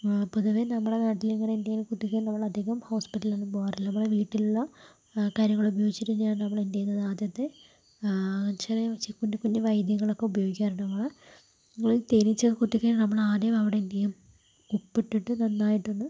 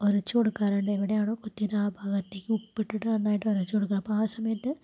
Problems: constant background noise, low volume